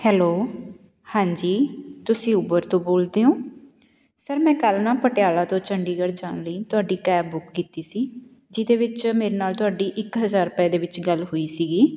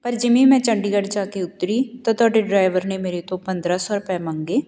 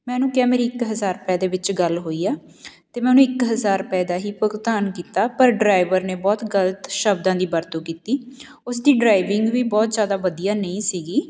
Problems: background sounds at intervals